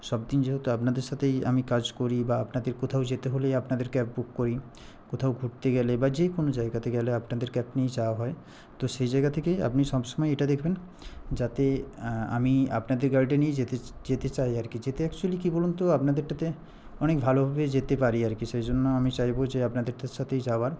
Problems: background conversations at intervals